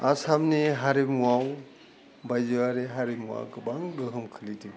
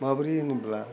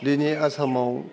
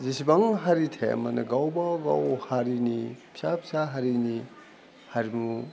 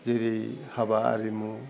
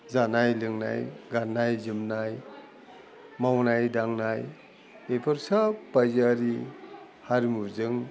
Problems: none marked